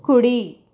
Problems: constant background noise